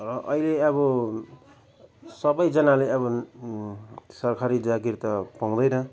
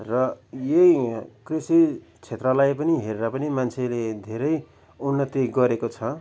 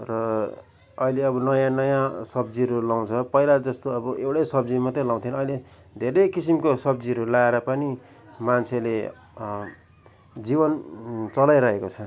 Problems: none marked